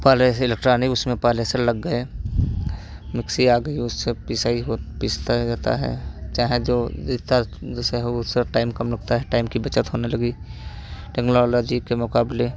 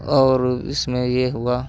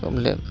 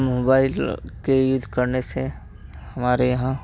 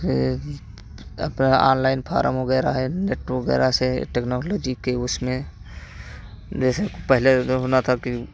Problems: constant background noise